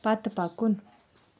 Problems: background sounds at intervals